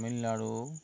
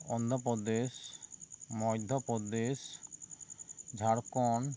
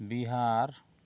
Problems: constant background noise